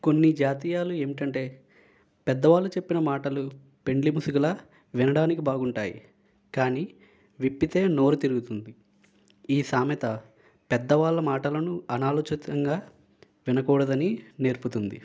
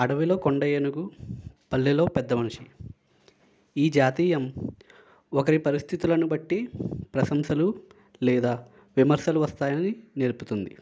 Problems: none marked